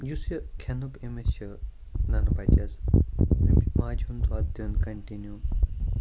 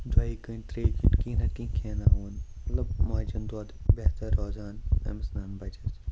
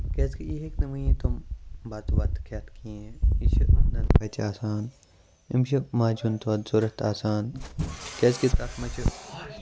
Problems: constant background noise, low volume